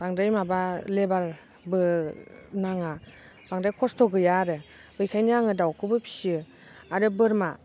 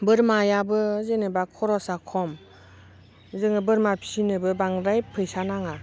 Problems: constant background noise